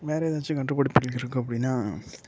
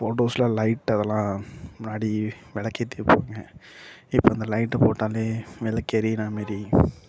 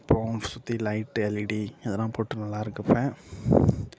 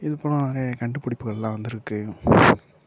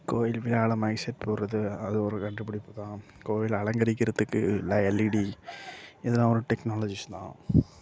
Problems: low volume